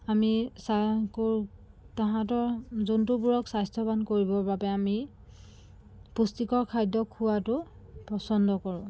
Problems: constant background noise, background conversations at intervals